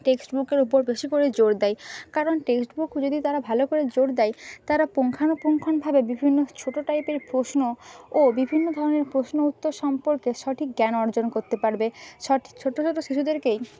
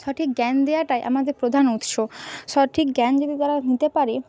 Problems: background sounds at intervals